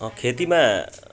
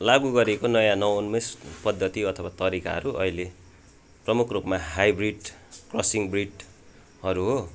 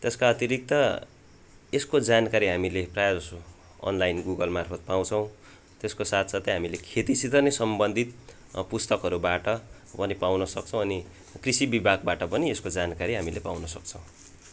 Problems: background sounds at intervals